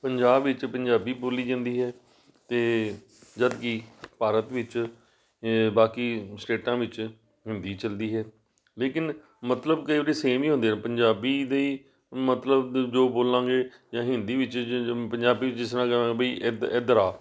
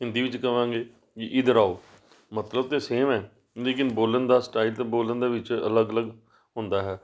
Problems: background sounds at intervals